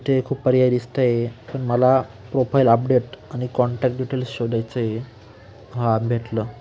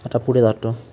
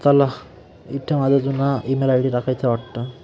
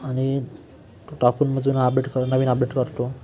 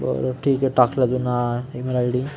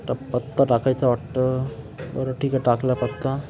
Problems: constant background noise, continuous background conversations